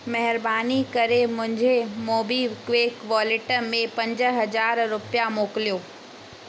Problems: constant background noise